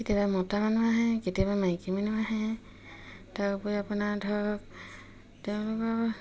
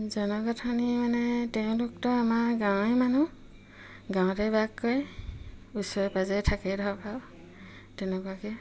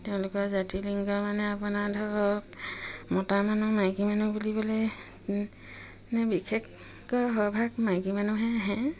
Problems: none marked